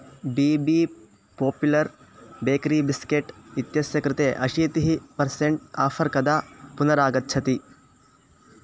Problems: constant background noise